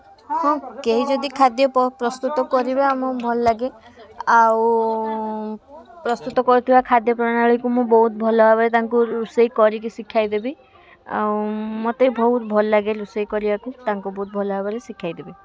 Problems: continuous background conversations